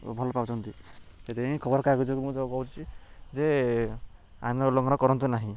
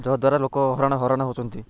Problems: background sounds at intervals